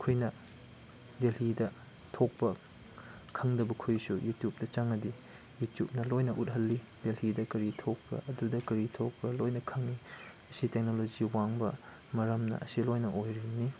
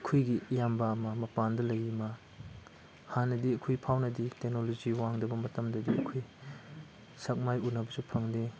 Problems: none marked